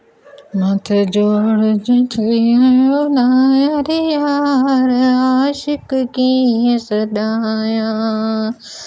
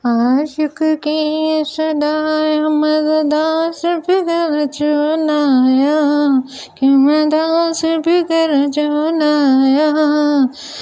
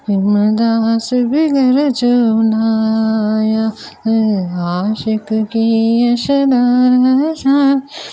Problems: background sounds at intervals